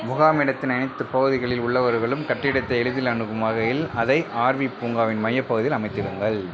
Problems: background conversations at intervals